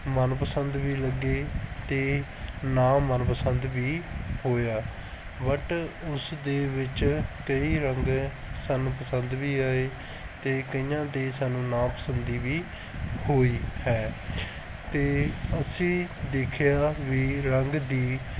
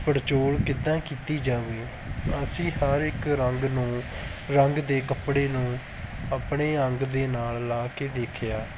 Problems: background sounds at intervals